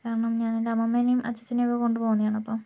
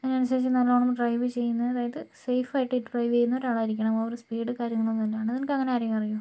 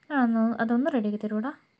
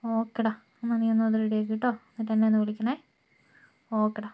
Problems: low volume